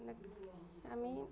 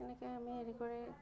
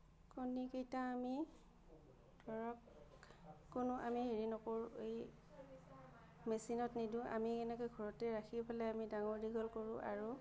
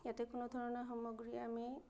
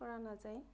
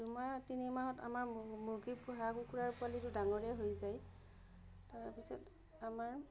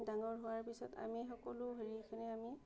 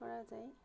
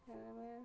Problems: none marked